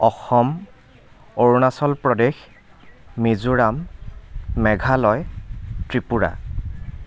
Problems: constant background noise, continuous background conversations